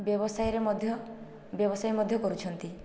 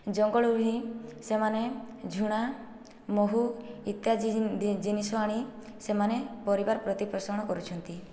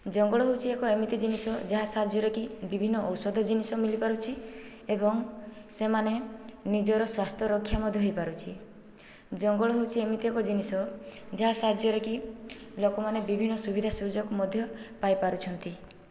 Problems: low volume